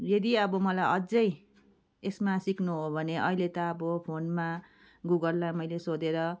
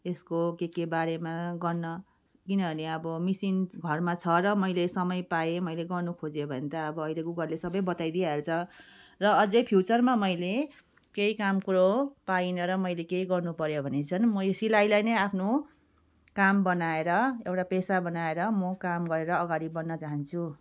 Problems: background sounds at intervals